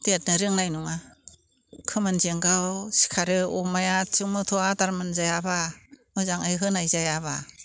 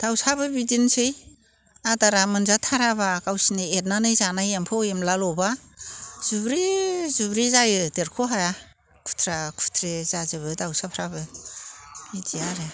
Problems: constant background noise